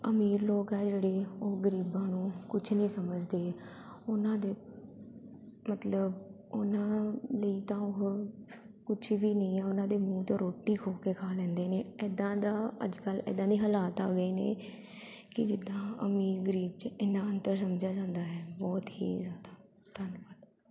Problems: none marked